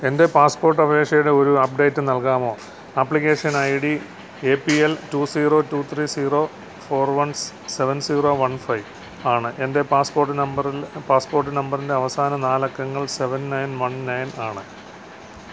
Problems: none marked